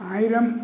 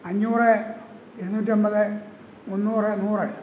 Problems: constant background noise